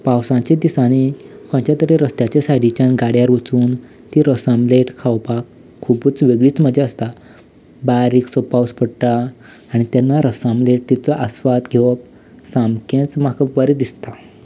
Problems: background sounds at intervals